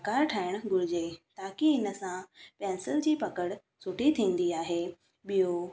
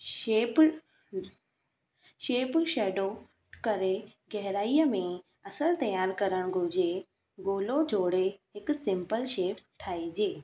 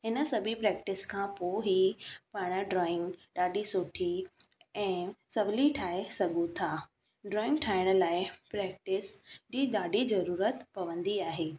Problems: background sounds at intervals